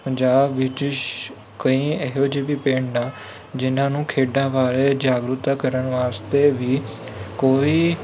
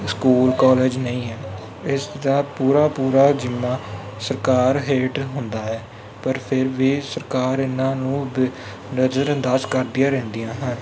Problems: constant background noise